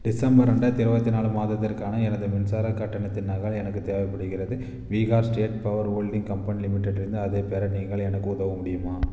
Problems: constant background noise